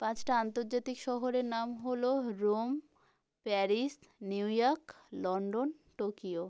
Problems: none marked